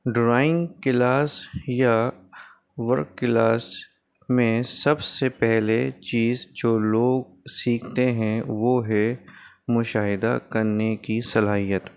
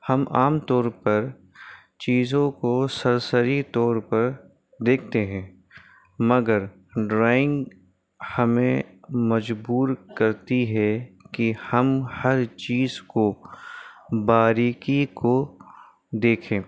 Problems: constant background noise